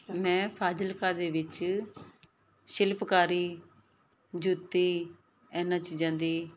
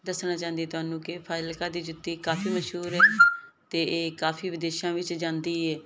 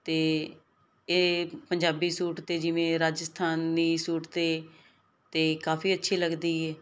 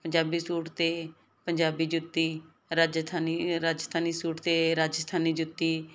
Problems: none marked